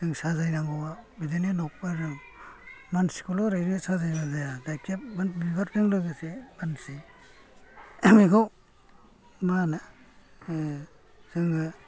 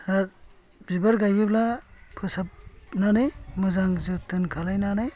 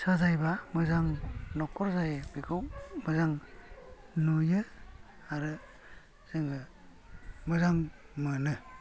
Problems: low volume